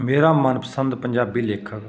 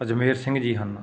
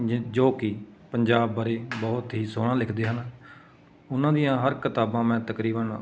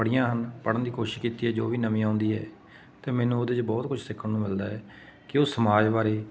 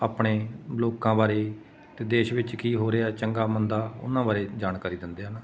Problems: none marked